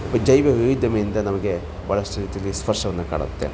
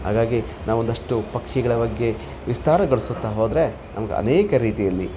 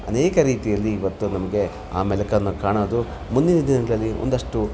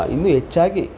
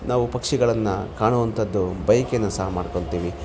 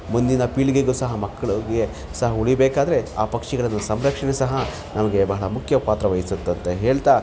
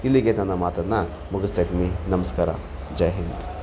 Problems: constant background noise